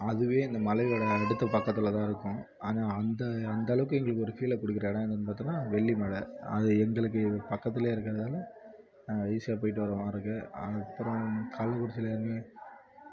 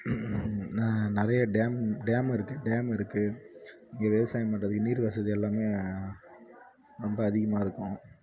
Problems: low volume